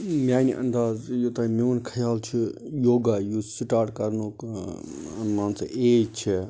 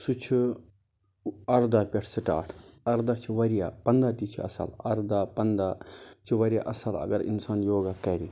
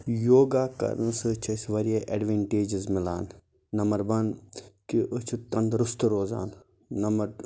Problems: constant background noise